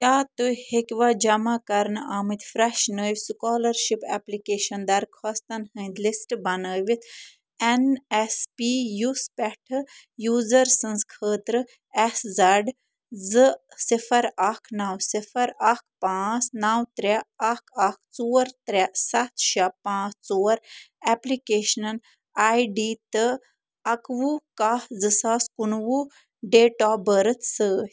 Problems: none marked